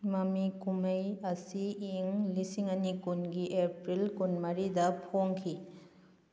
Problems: none marked